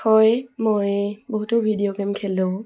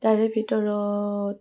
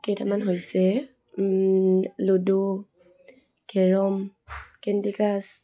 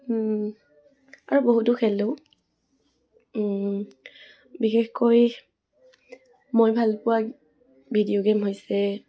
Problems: none marked